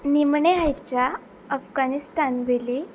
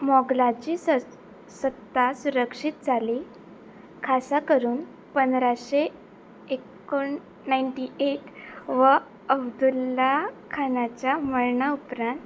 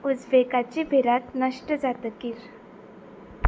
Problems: constant background noise